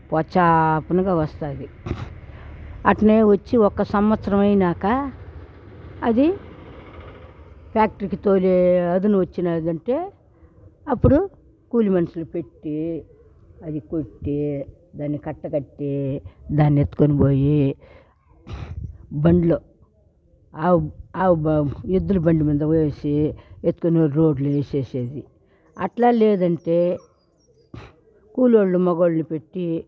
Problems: constant background noise, background conversations at intervals